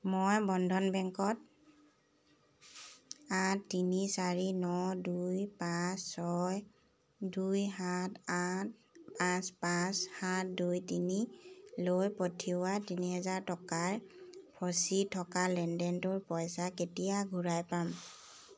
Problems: none marked